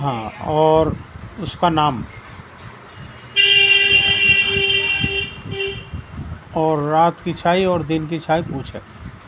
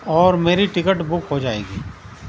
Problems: constant background noise